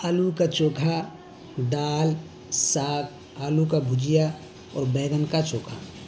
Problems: constant background noise